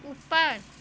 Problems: constant background noise, background conversations at intervals